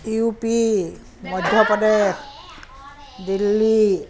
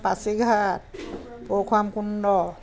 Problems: constant background noise